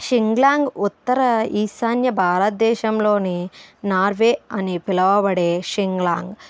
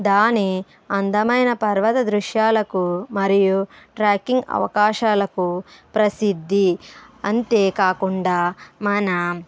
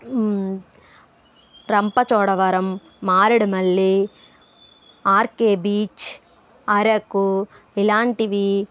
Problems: background sounds at intervals, background conversations at intervals